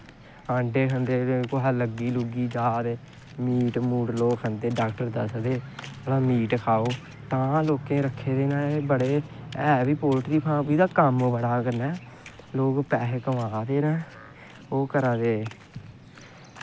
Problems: constant background noise